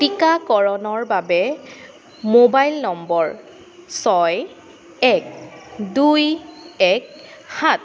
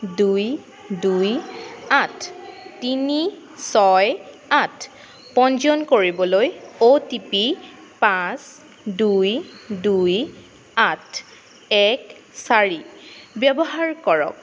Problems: constant background noise